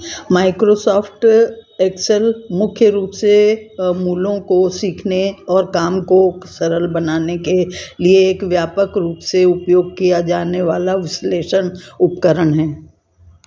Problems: constant background noise